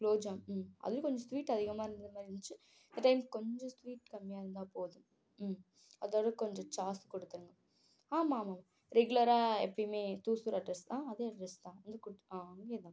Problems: low volume